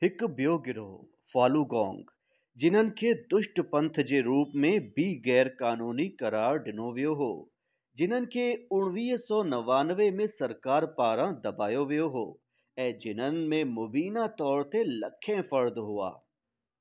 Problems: none marked